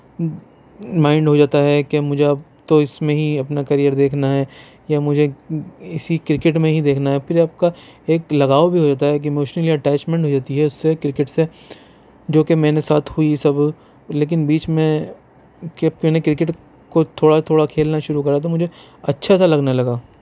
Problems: constant background noise